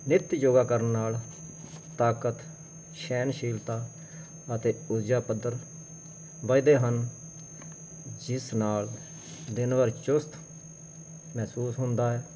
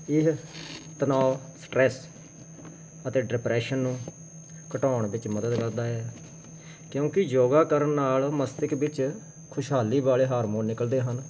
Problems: constant background noise